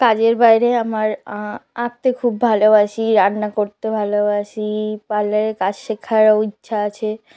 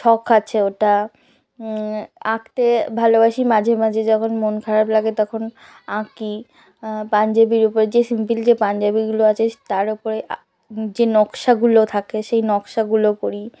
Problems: background conversations at intervals